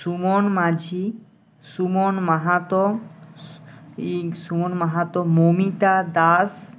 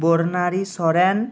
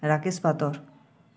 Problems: none marked